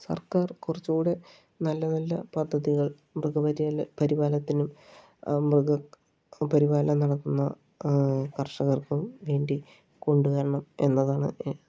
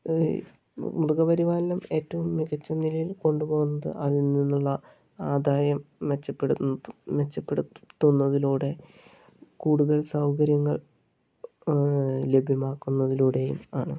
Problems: low volume